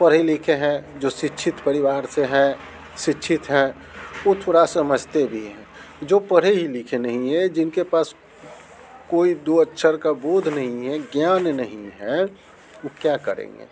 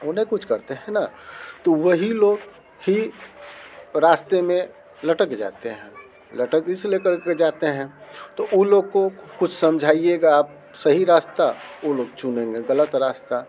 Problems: background sounds at intervals